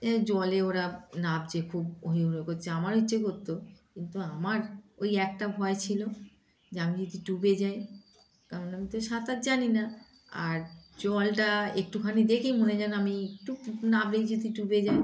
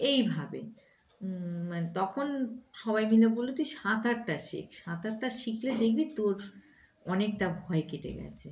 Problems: background sounds at intervals